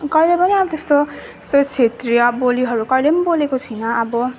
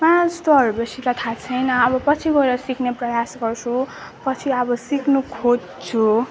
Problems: background sounds at intervals